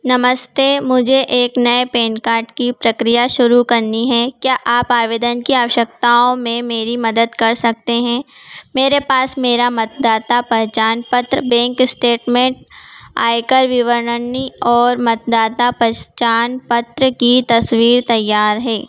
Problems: background sounds at intervals